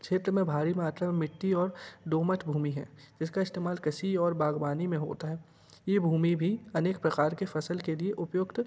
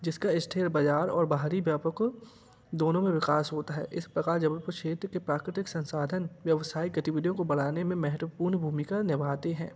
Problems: background sounds at intervals